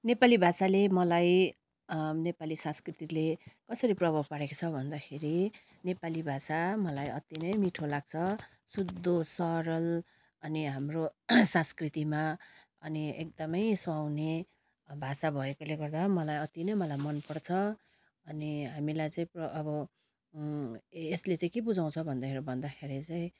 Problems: constant background noise